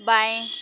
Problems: constant background noise